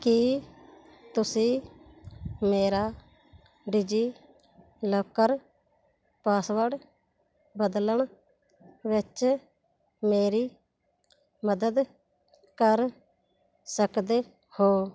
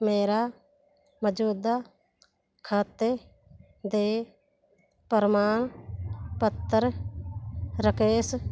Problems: background sounds at intervals